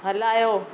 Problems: none marked